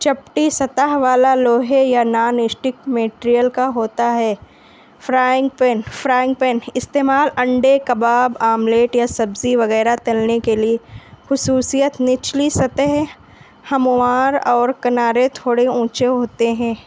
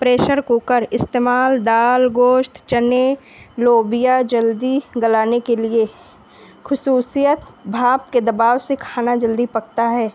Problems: none marked